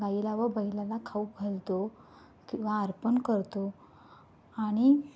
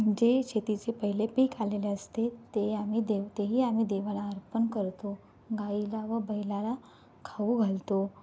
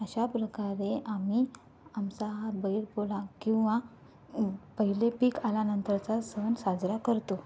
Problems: background sounds at intervals